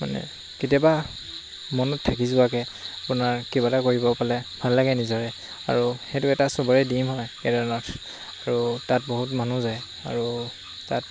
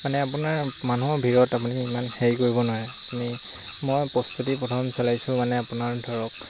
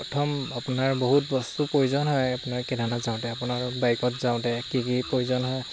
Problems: constant background noise